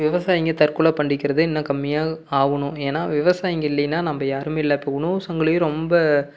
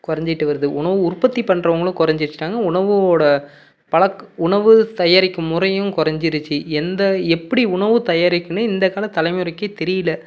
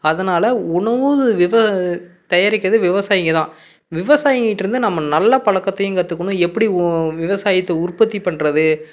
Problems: none marked